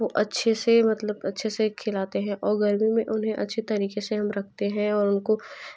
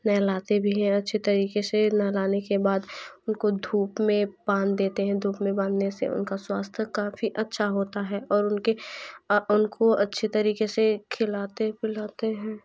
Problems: background sounds at intervals, background conversations at intervals